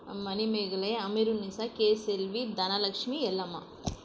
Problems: none marked